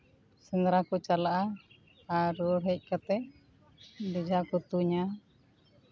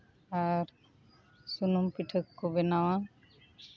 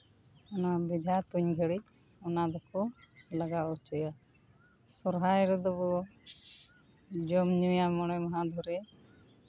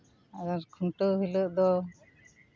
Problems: constant background noise, background conversations at intervals